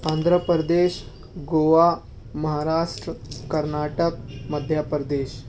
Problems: background sounds at intervals